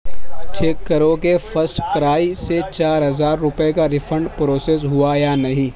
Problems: constant background noise